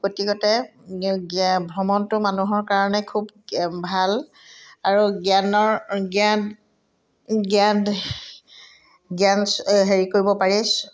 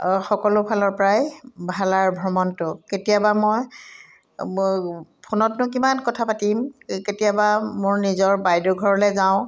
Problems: none marked